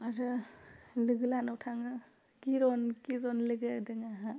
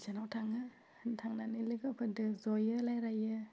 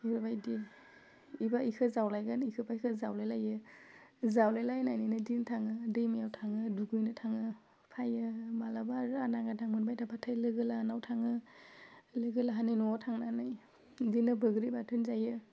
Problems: constant background noise